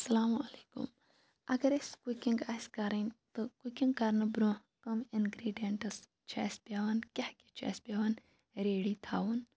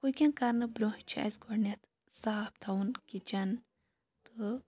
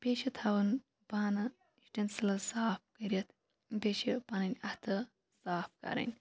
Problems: background sounds at intervals, low volume